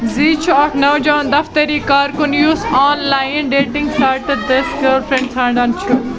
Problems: constant background noise